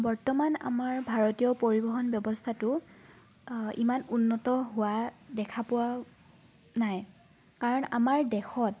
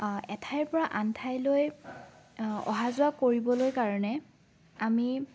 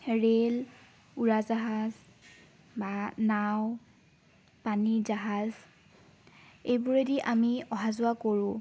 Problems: background sounds at intervals, background conversations at intervals